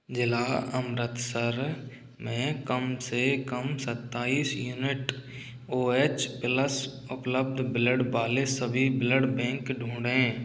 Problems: none marked